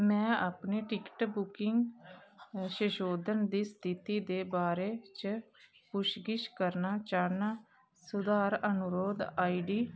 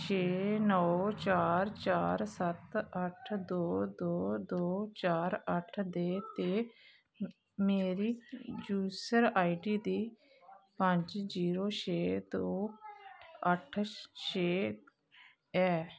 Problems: none marked